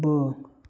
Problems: none marked